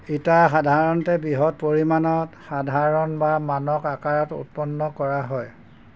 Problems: constant background noise